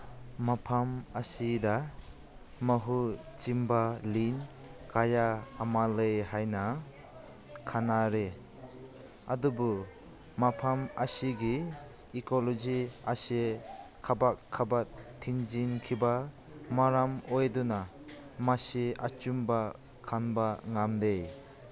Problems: constant background noise